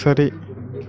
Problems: none marked